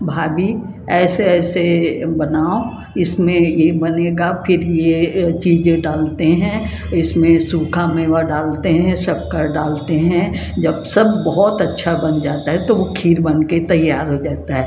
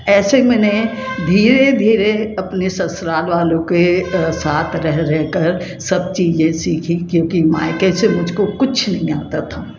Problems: constant background noise